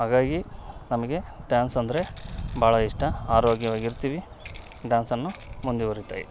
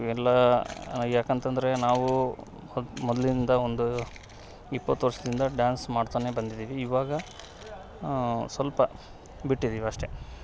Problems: none marked